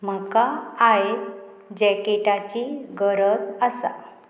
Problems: none marked